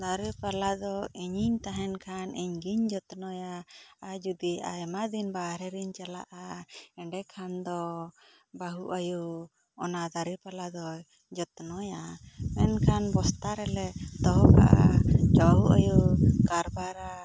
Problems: none marked